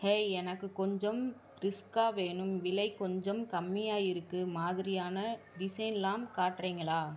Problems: none marked